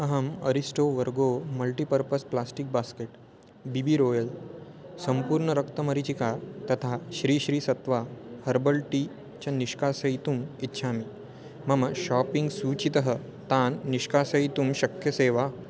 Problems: none marked